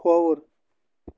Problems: background sounds at intervals